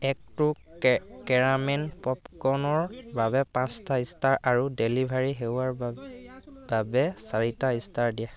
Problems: constant background noise